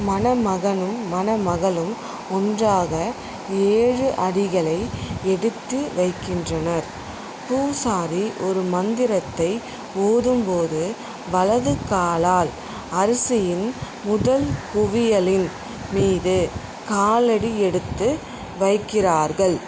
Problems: constant background noise